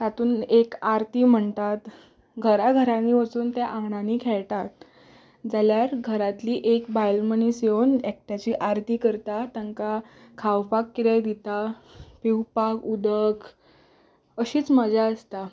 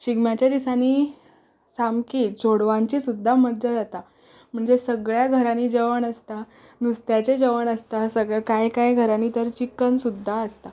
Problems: background sounds at intervals